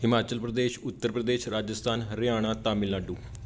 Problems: background sounds at intervals